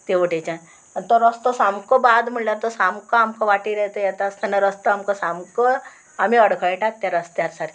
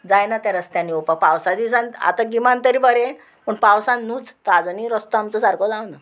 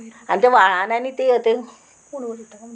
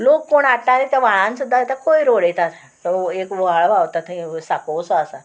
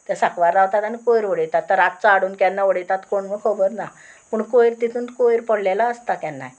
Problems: constant background noise